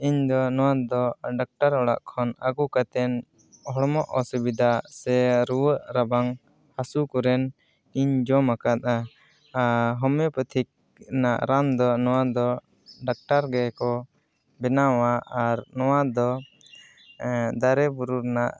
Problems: none marked